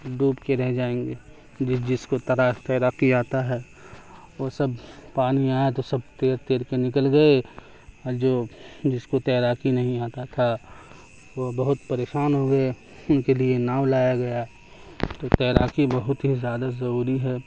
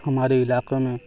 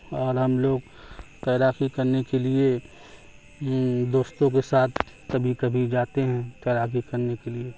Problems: constant background noise, background conversations at intervals